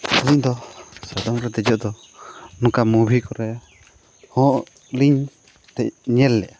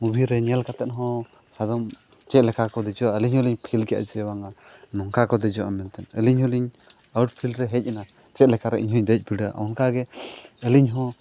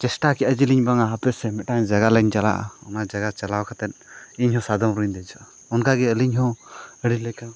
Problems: background sounds at intervals